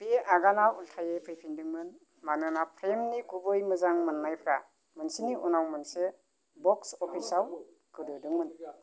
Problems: background sounds at intervals